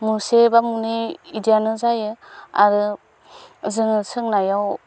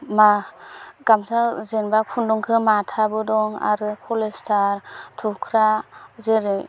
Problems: constant background noise